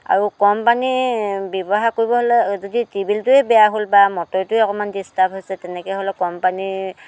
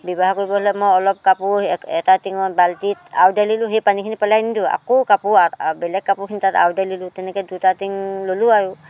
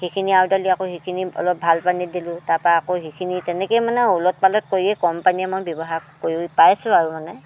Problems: constant background noise